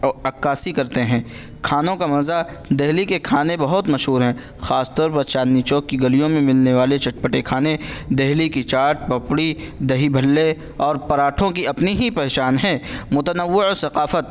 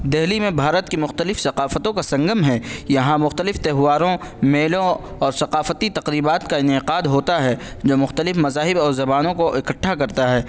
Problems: none marked